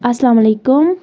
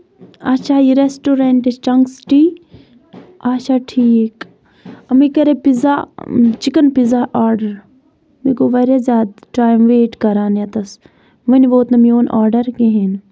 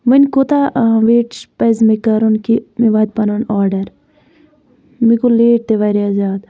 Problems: none marked